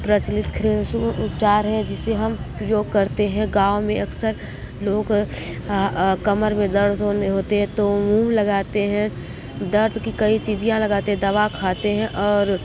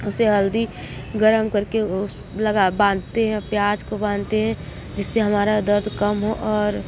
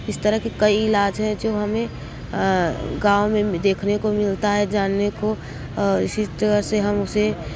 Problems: constant background noise, continuous background conversations